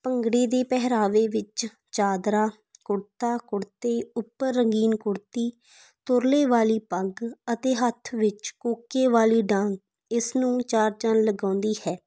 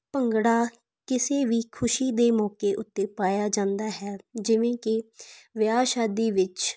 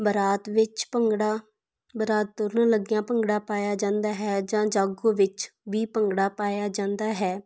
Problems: background sounds at intervals